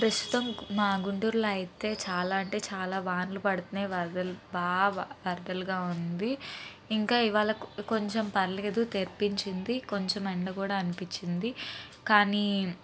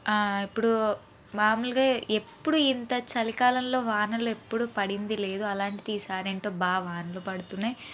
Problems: background sounds at intervals